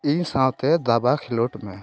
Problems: background conversations at intervals